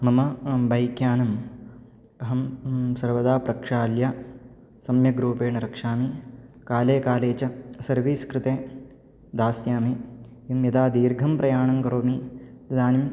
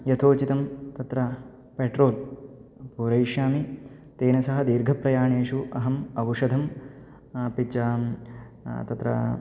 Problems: none marked